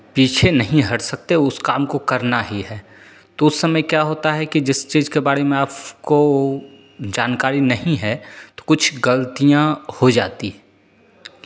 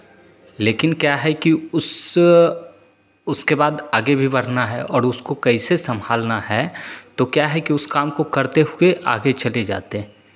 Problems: constant background noise, echo